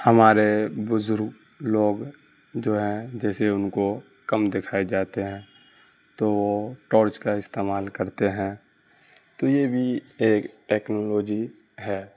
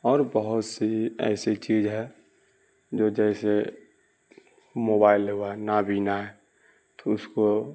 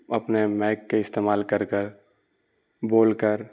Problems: none marked